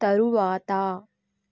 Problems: low volume